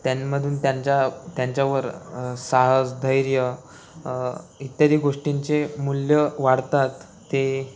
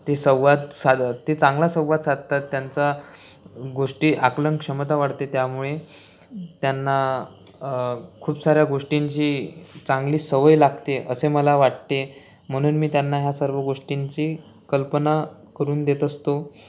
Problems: constant background noise